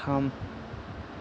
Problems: low volume